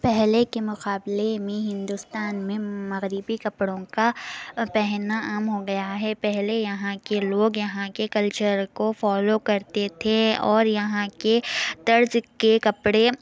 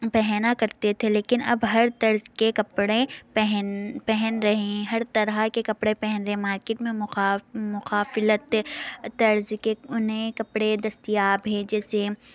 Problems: constant background noise